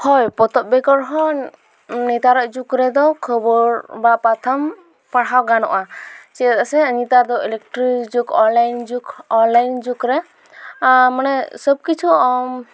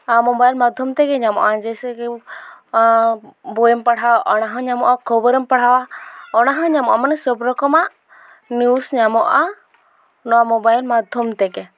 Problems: constant background noise, background conversations at intervals